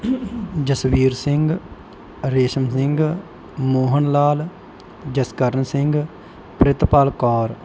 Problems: background sounds at intervals